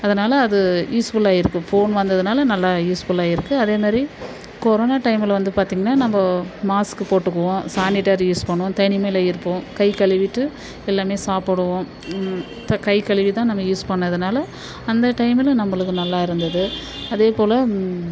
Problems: constant background noise